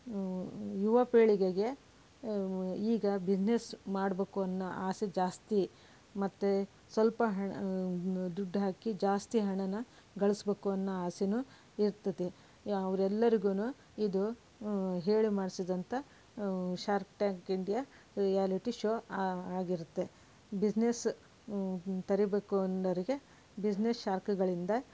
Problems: background sounds at intervals